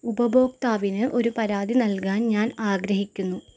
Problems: background sounds at intervals